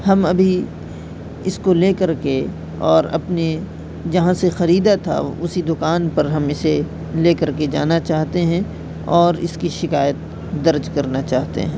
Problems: constant background noise